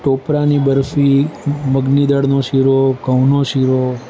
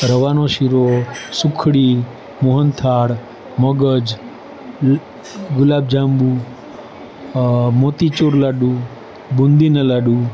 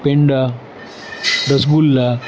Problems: constant background noise